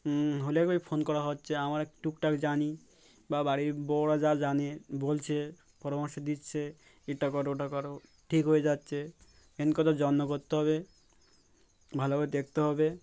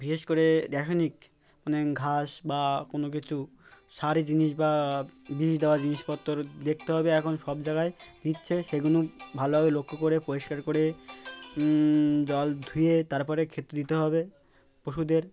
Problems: background sounds at intervals